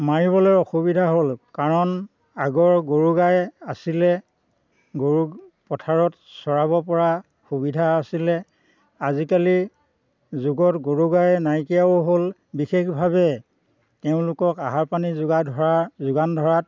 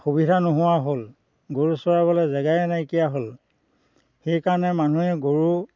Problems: constant background noise